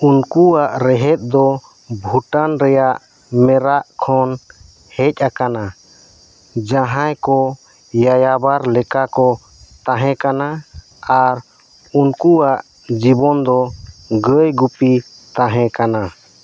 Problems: constant background noise